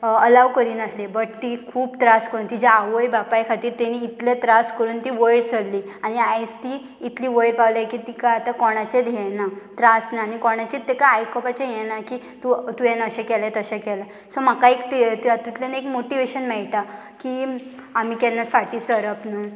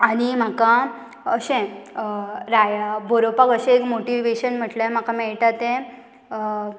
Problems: none marked